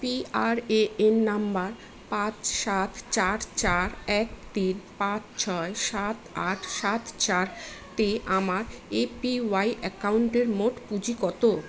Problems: constant background noise